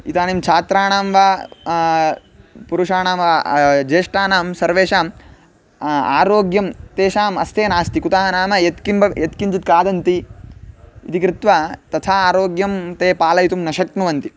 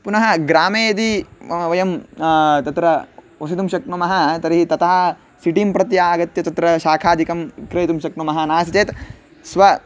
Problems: none marked